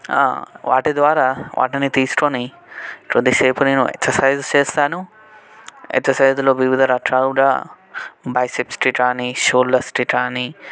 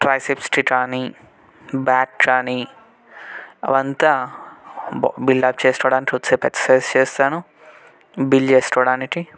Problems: background conversations at intervals